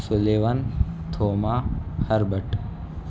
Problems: constant background noise